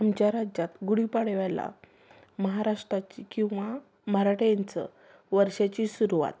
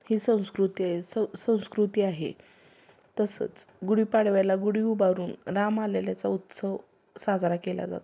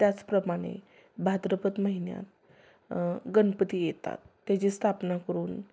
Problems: background sounds at intervals